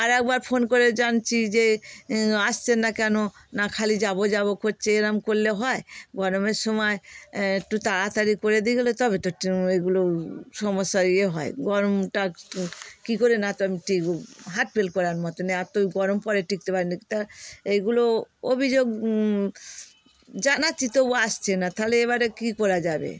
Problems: constant background noise